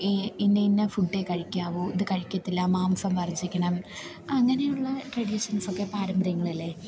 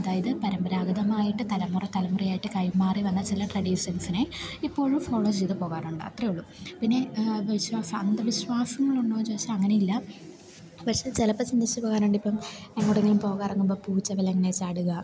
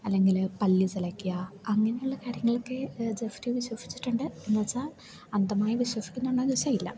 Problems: low volume